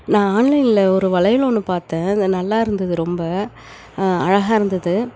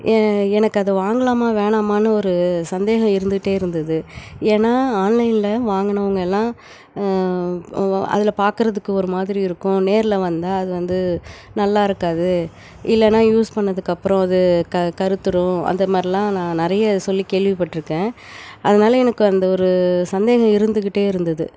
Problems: none marked